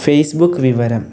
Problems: none marked